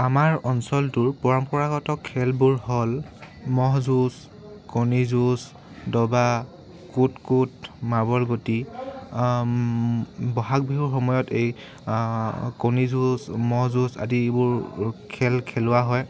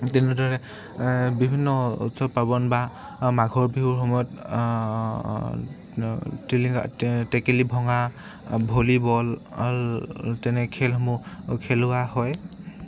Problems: background sounds at intervals